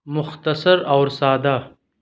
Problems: background sounds at intervals